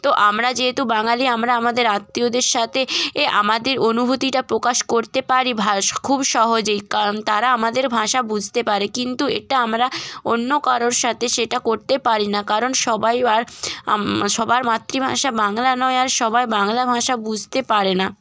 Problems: background sounds at intervals